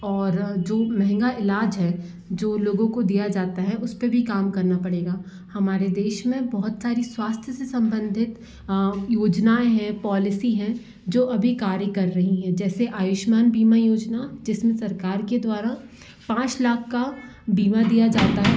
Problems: constant background noise